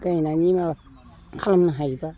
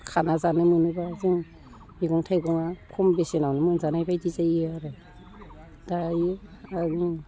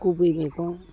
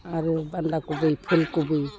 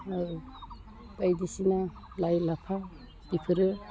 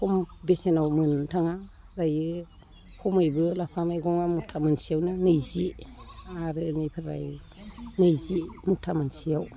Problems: background conversations at intervals, low volume